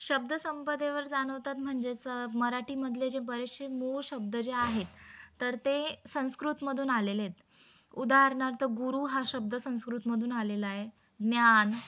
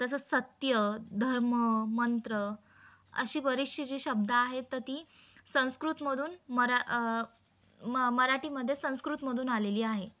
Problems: none marked